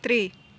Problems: none marked